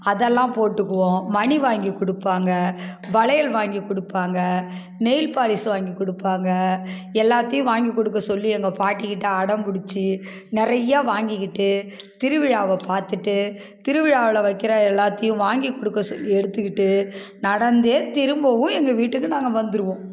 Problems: background sounds at intervals